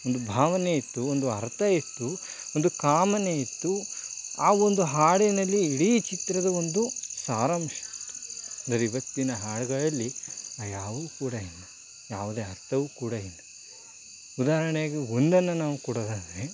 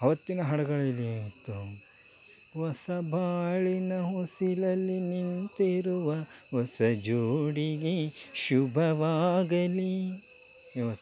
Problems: constant background noise